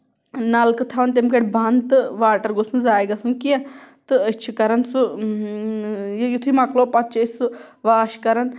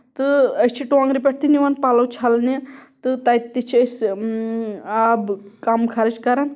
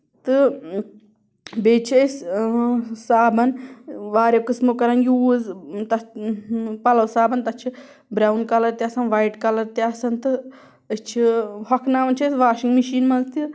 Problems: background sounds at intervals